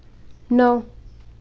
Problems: constant background noise